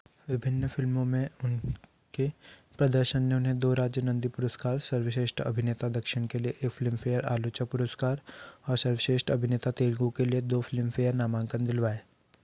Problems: background sounds at intervals